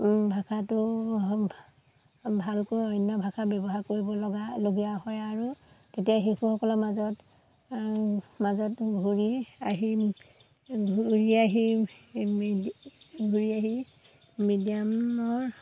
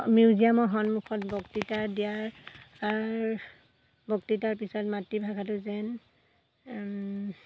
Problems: none marked